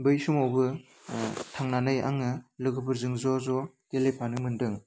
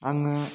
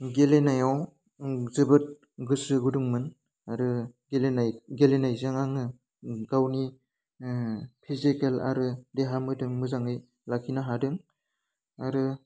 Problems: constant background noise